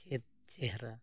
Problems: low volume